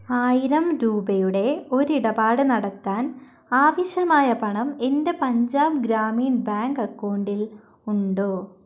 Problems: none marked